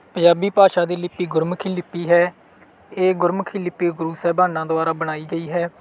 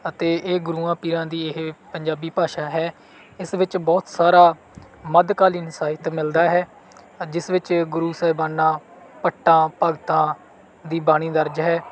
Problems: background sounds at intervals